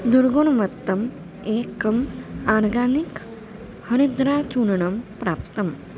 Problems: constant background noise